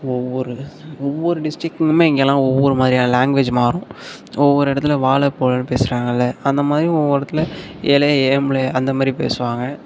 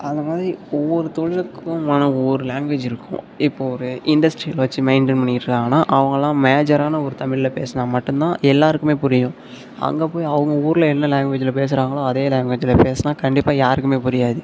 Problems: constant background noise